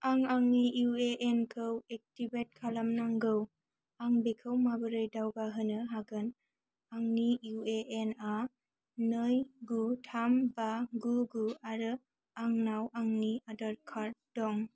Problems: low volume